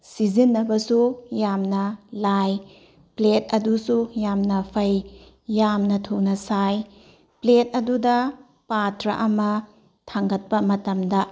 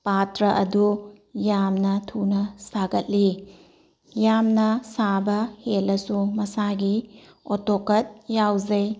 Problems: none marked